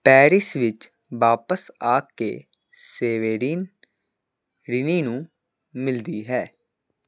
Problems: constant background noise